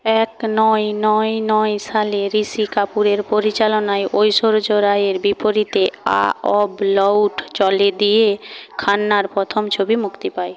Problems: constant background noise